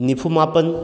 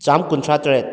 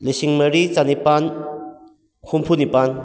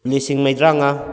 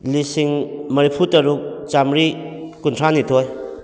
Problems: echo